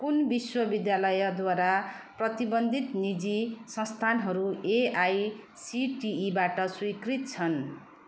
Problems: none marked